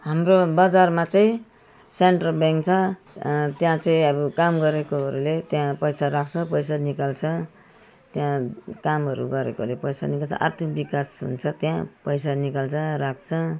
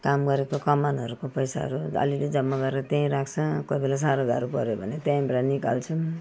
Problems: none marked